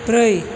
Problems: constant background noise